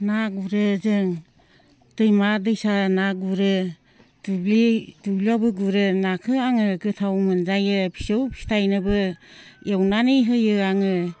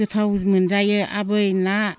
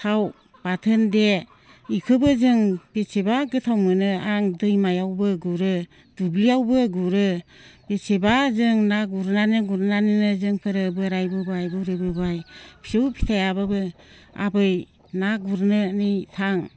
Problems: constant background noise